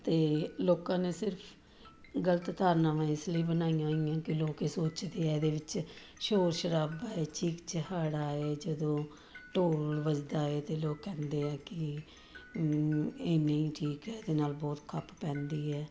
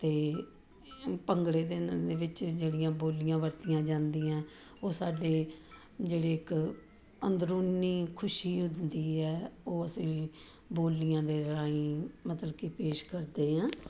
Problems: background sounds at intervals